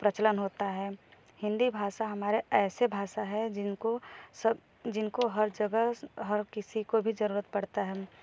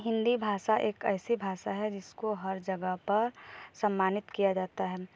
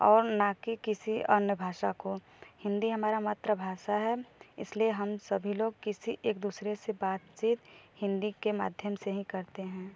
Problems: none marked